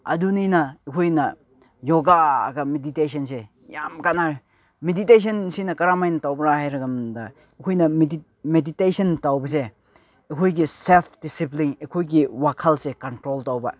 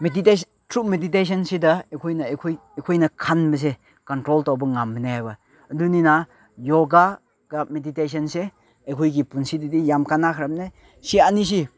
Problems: none marked